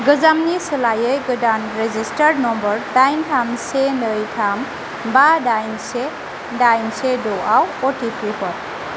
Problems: constant background noise